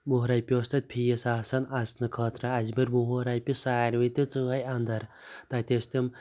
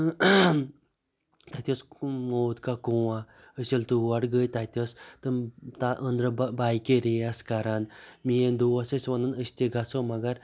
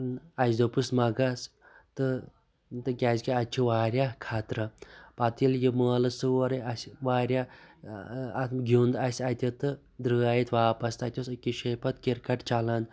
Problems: constant background noise